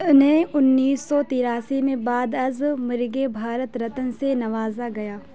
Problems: constant background noise, background conversations at intervals